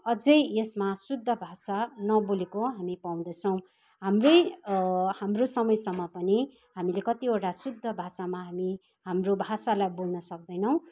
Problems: constant background noise